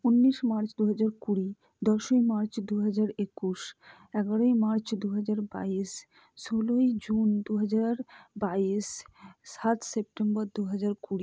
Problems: low volume